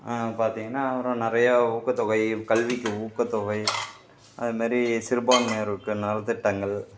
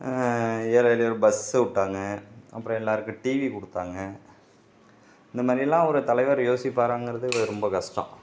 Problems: background sounds at intervals